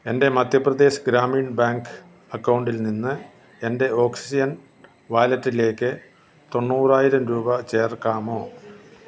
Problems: none marked